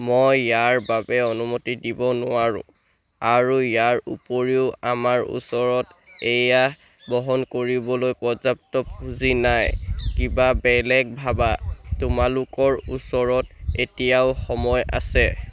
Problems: none marked